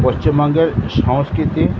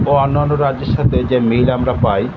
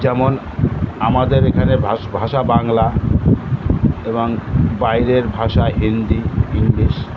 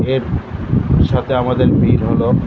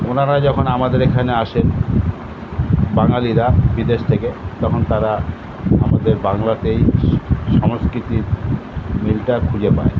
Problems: constant background noise